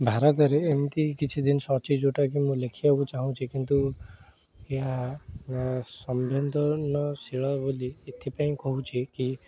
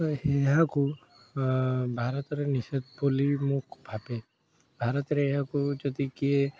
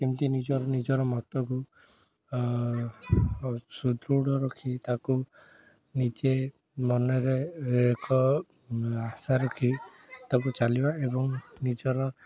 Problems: background sounds at intervals, background conversations at intervals